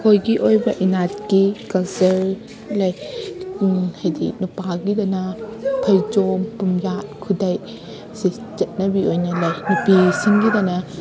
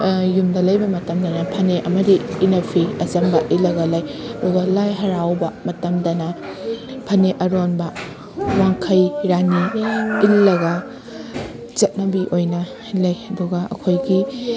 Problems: constant background noise